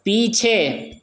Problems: none marked